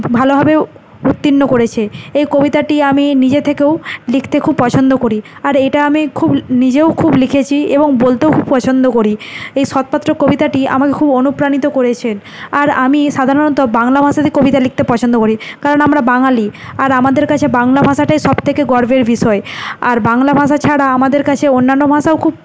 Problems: none marked